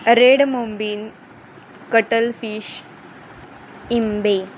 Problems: constant background noise